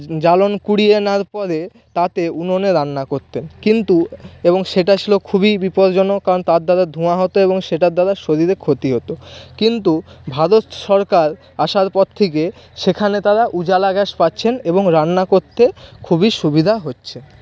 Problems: background sounds at intervals, background conversations at intervals